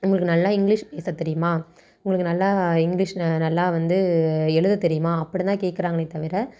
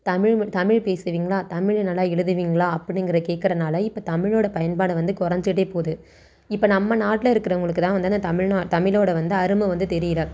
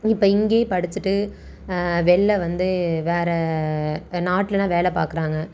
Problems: none marked